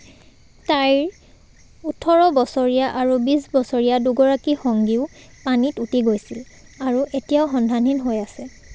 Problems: none marked